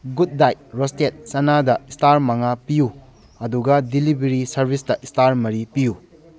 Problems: background conversations at intervals